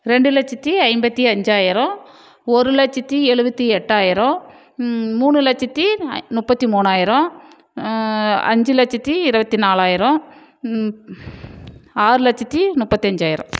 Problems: none marked